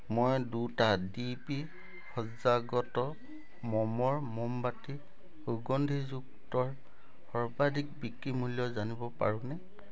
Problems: background sounds at intervals